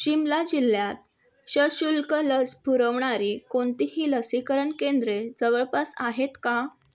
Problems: background sounds at intervals